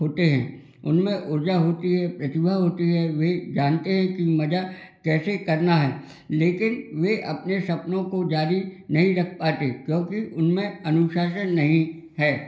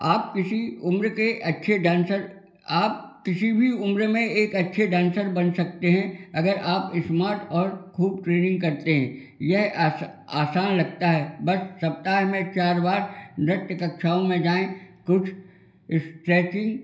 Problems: none marked